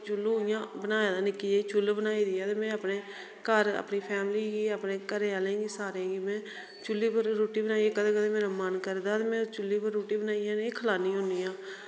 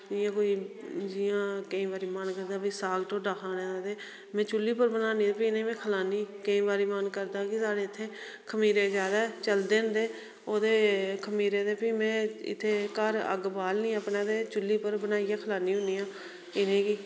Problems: background sounds at intervals, echo